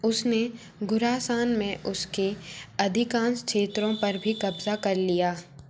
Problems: constant background noise